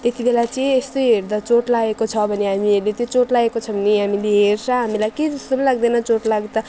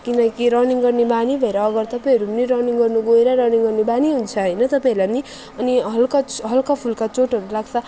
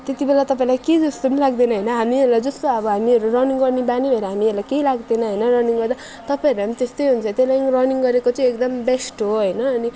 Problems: none marked